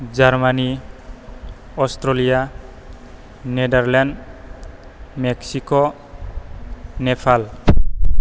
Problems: none marked